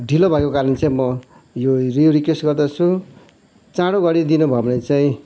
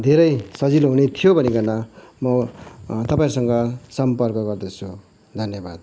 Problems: constant background noise